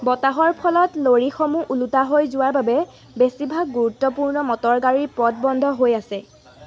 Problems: none marked